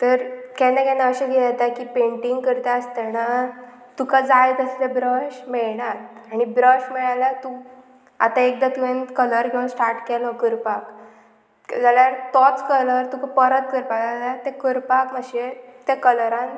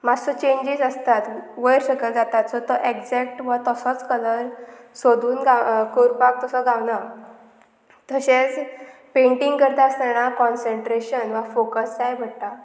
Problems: none marked